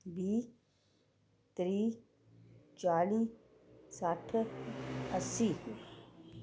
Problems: constant background noise